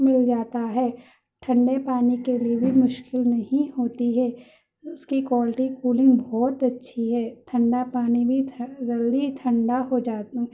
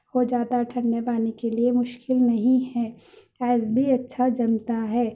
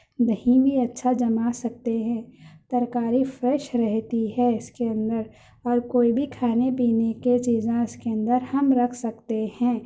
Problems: none marked